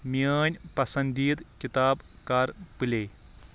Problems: constant background noise